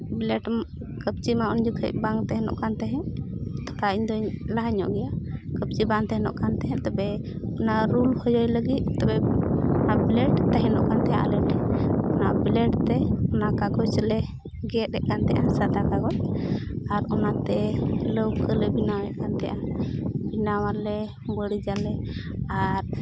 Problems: constant background noise